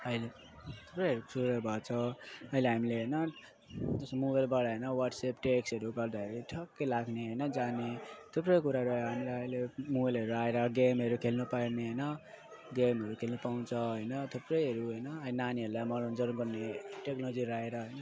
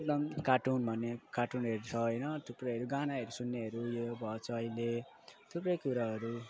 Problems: constant background noise